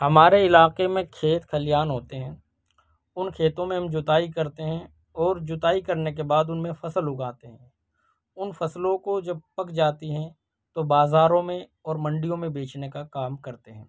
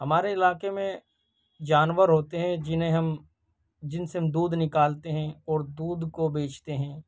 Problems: none marked